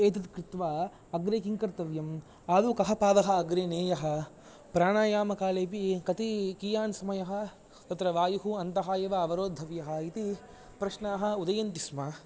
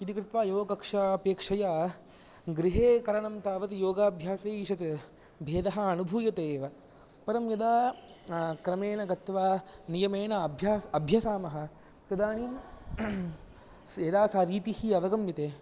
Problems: none marked